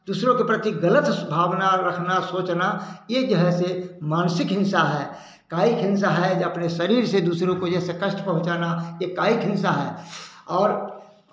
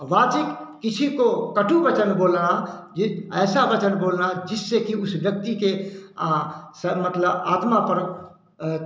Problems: none marked